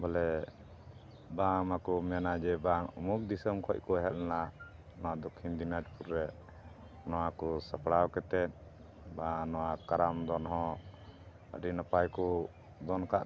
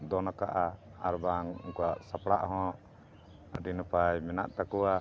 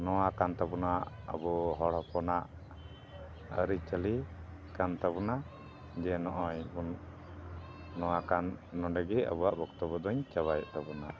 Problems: constant background noise